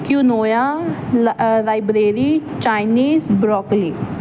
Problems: constant background noise